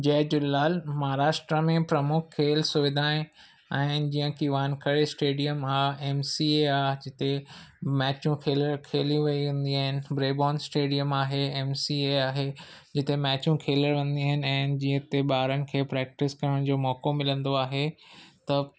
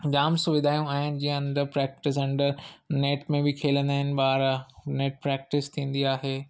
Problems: none marked